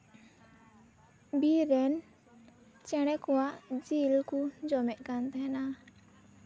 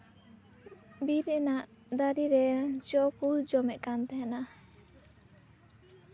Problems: constant background noise